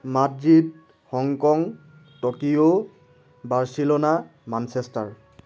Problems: constant background noise